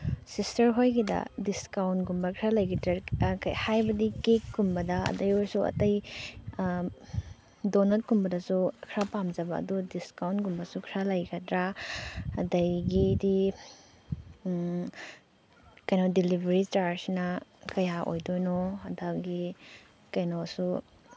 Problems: background sounds at intervals